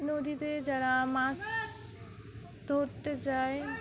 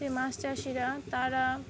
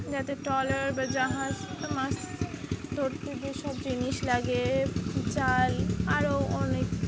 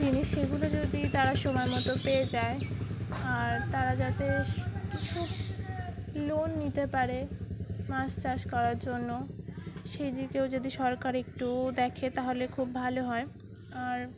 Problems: constant background noise, background conversations at intervals